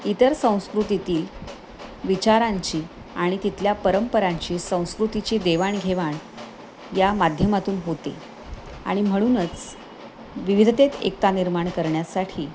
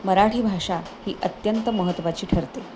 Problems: none marked